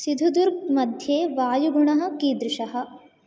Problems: none marked